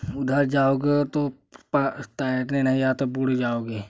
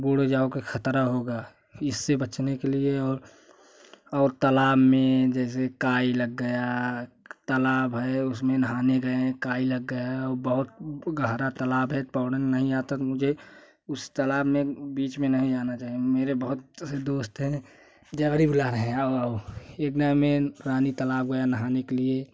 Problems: constant background noise